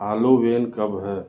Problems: constant background noise, low volume